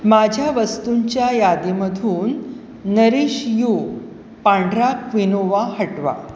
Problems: constant background noise